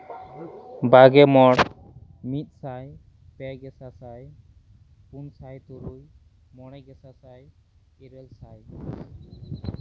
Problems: background sounds at intervals, low volume